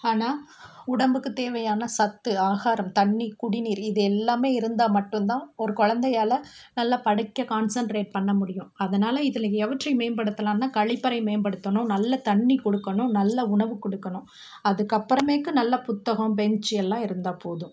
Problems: constant background noise